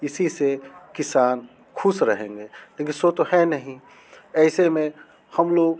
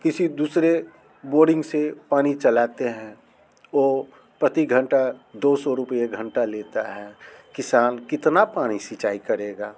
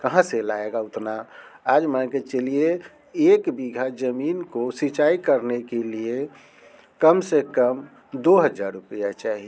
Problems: none marked